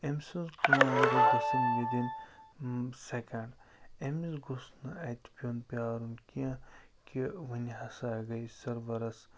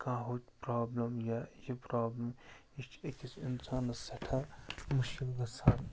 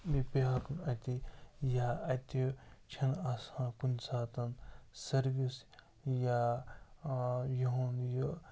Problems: constant background noise, low volume